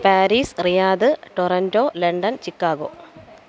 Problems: constant background noise